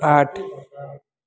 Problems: constant background noise